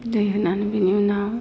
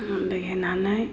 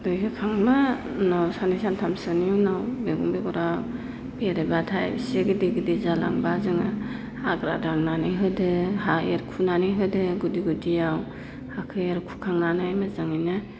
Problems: constant background noise